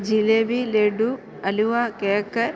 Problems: constant background noise